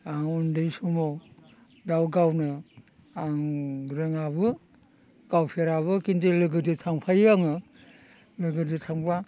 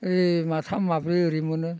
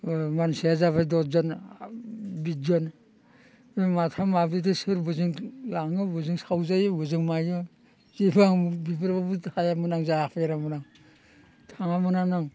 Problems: constant background noise